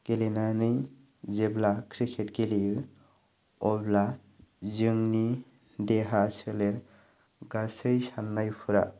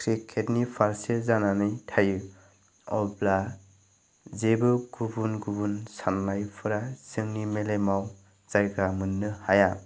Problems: none marked